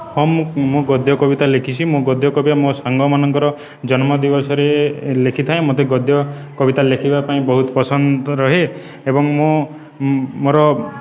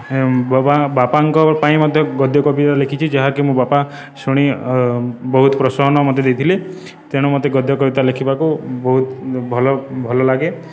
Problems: continuous background conversations